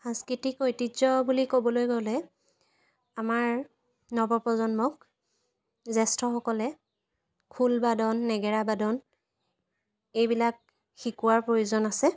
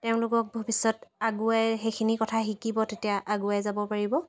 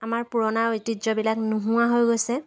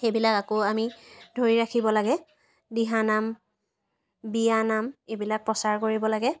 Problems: constant background noise